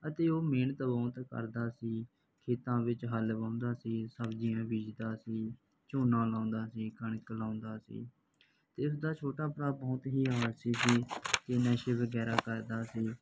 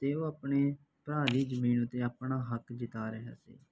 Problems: background sounds at intervals